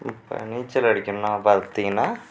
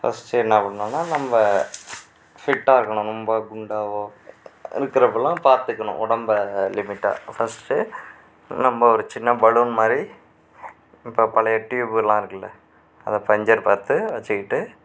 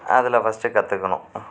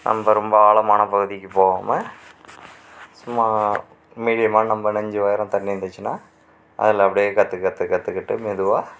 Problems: background sounds at intervals